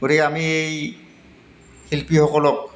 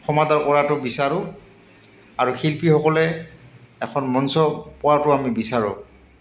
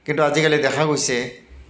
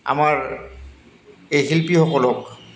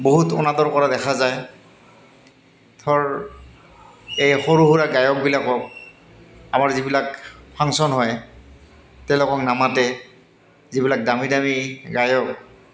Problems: none marked